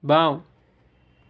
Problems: background sounds at intervals